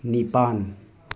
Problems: background conversations at intervals